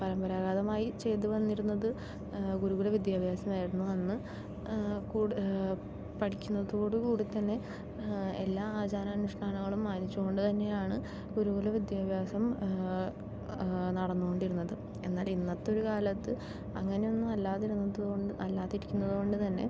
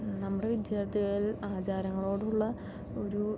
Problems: none marked